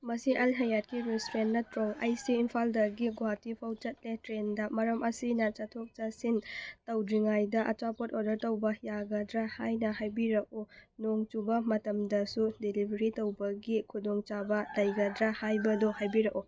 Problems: background sounds at intervals